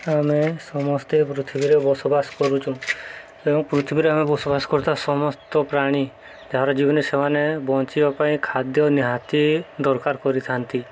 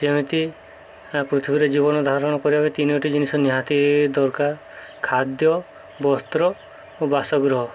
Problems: background sounds at intervals